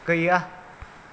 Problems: none marked